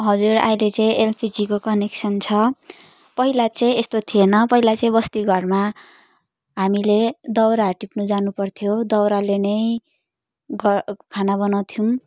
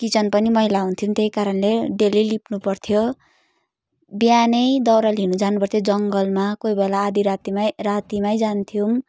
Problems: none marked